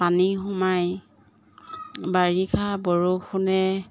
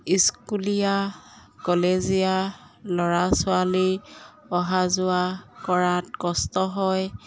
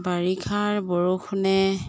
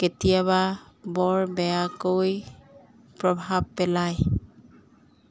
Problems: background sounds at intervals